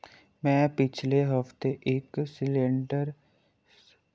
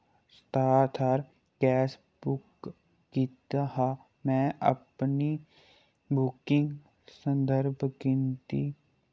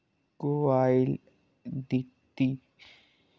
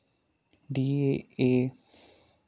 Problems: low volume